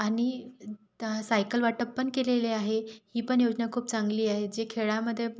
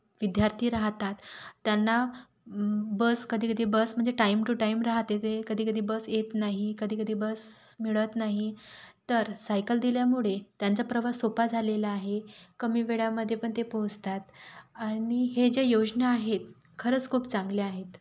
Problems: background sounds at intervals